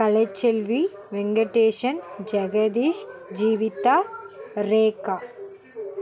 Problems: continuous background conversations